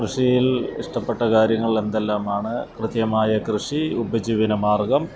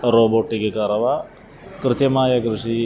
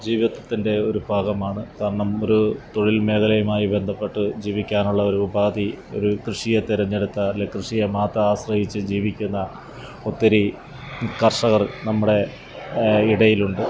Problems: background sounds at intervals